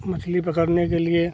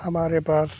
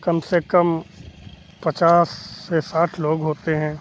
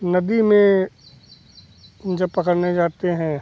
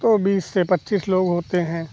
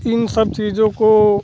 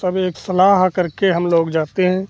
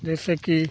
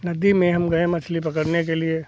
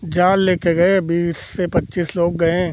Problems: constant background noise